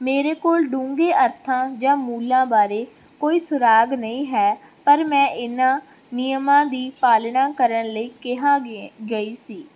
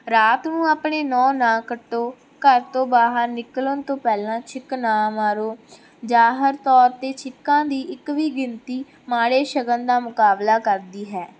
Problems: background sounds at intervals